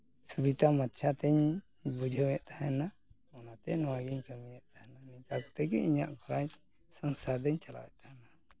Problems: background conversations at intervals